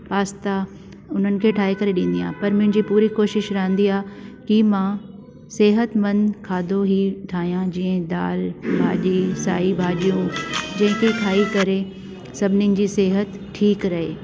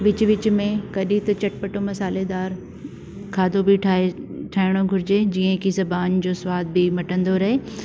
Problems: constant background noise, echo